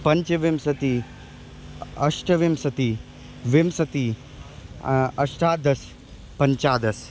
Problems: constant background noise